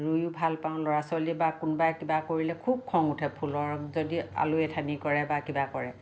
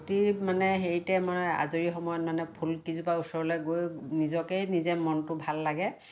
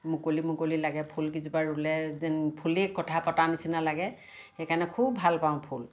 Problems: constant background noise